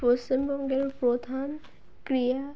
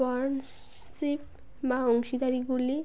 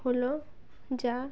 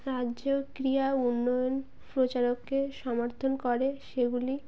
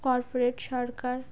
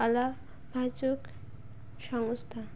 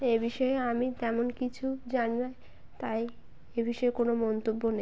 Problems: background sounds at intervals